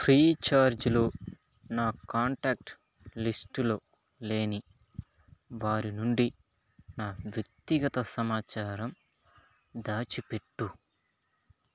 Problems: background sounds at intervals